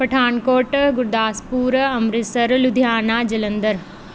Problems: none marked